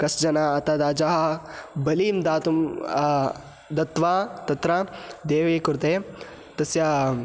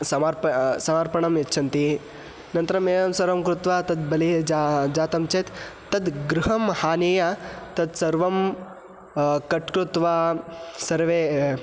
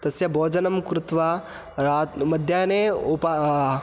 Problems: background sounds at intervals